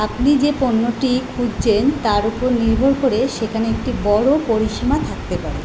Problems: constant background noise